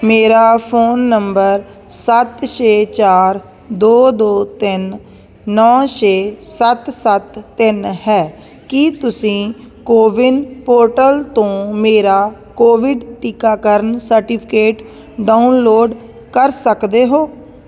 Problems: constant background noise